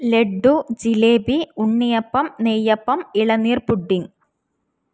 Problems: none marked